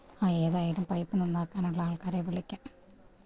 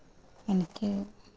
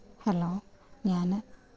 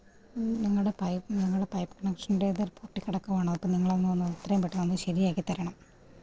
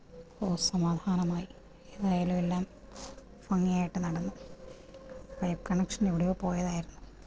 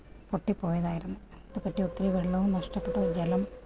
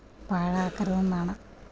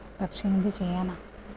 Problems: background sounds at intervals, low volume